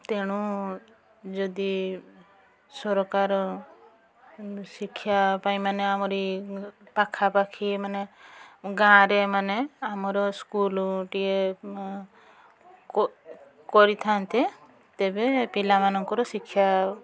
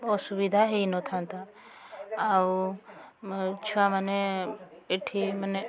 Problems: constant background noise, continuous background conversations